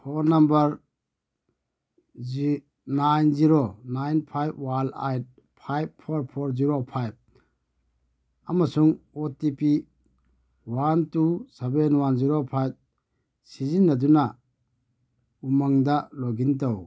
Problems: none marked